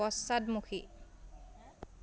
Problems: constant background noise